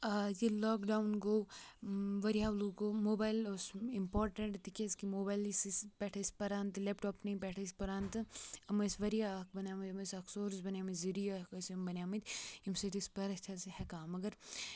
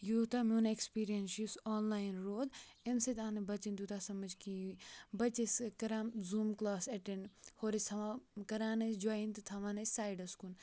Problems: background sounds at intervals, low volume